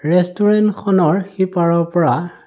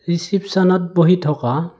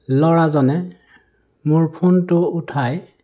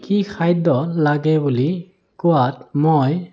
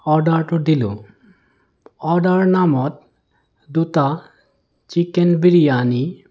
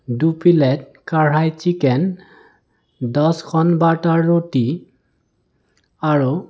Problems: none marked